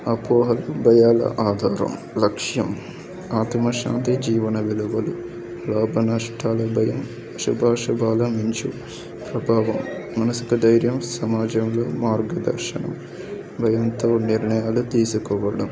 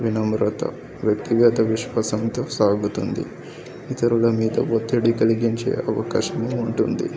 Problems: continuous background conversations